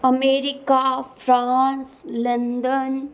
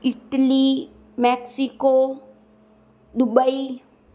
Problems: constant background noise